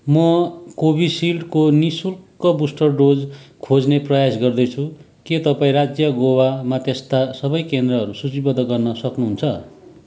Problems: background sounds at intervals